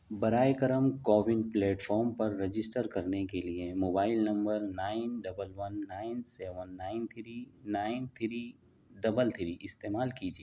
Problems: none marked